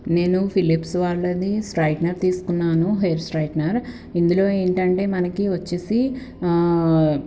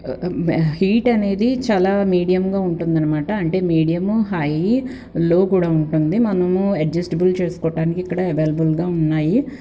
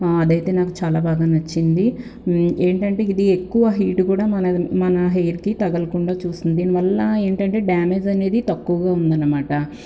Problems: constant background noise